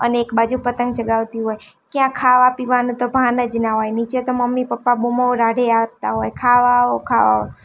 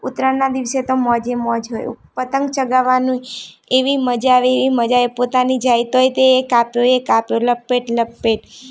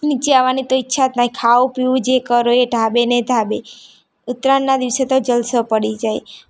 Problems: none marked